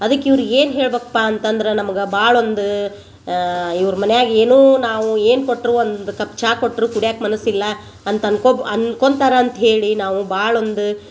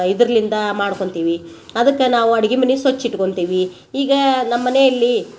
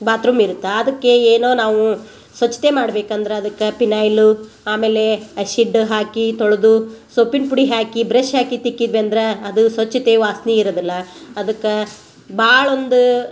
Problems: none marked